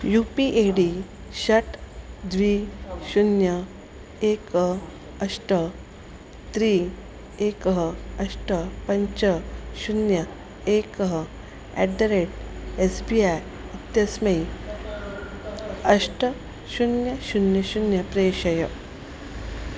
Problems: constant background noise